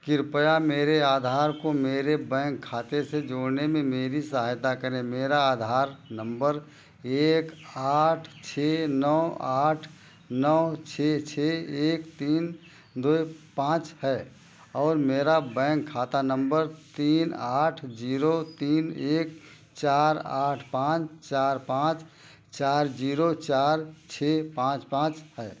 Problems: constant background noise